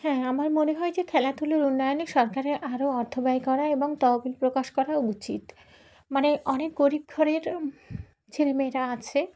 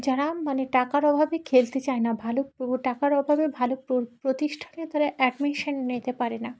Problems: background sounds at intervals, background conversations at intervals